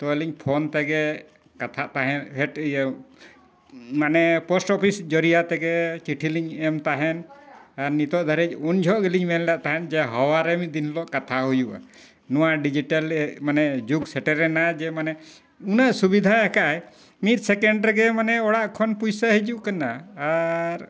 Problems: none marked